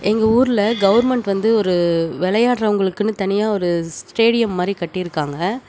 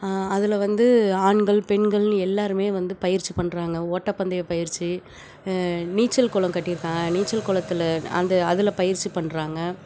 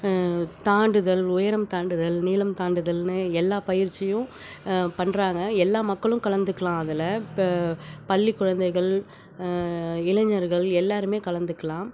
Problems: background sounds at intervals